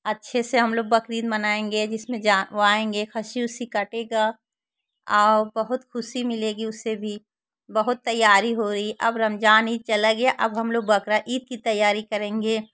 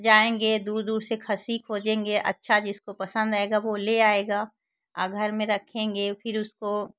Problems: constant background noise